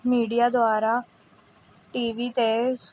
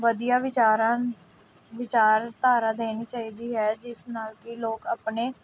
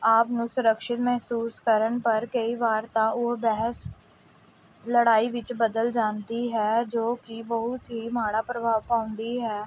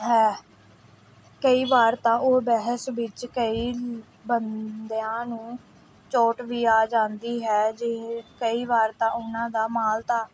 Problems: background sounds at intervals